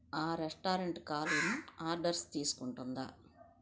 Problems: background sounds at intervals